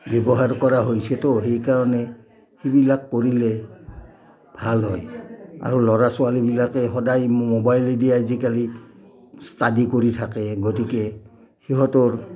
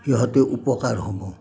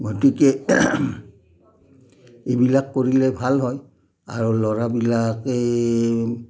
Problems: low volume